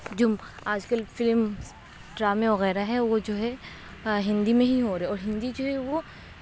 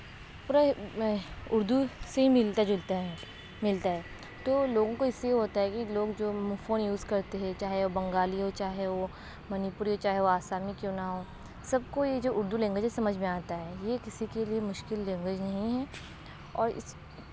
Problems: constant background noise, low volume